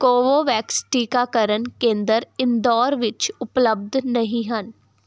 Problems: background sounds at intervals